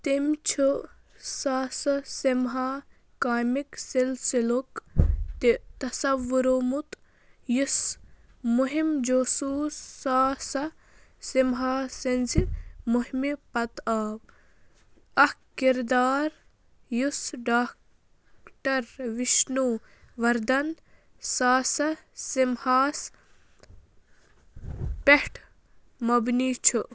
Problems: constant background noise